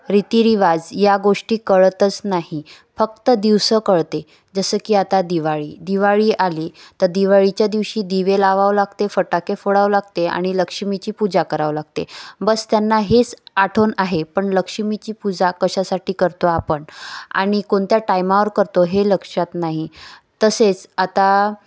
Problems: none marked